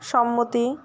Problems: constant background noise